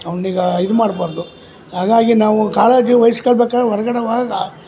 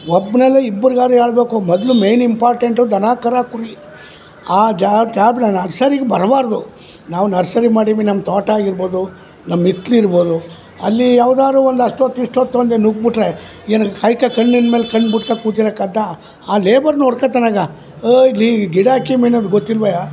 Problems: background sounds at intervals, background conversations at intervals